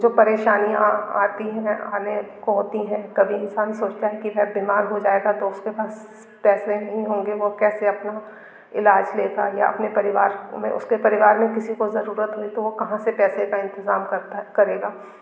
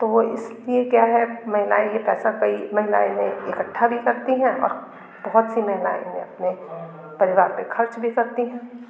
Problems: constant background noise, background conversations at intervals